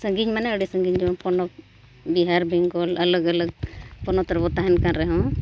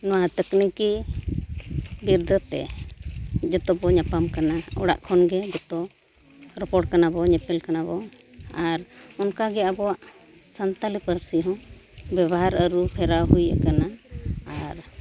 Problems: none marked